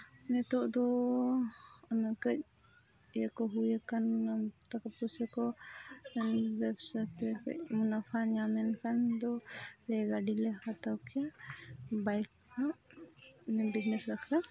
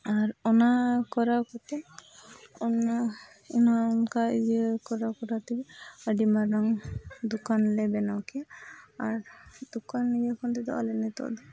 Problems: background sounds at intervals, continuous background conversations, low volume